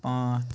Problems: none marked